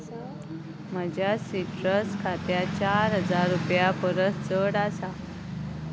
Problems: constant background noise